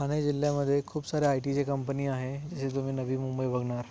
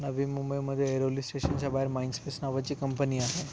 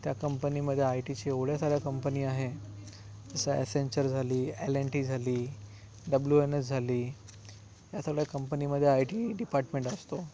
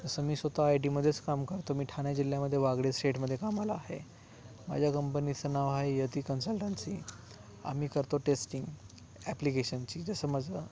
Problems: background sounds at intervals